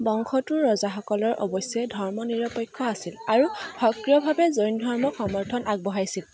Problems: constant background noise, background conversations at intervals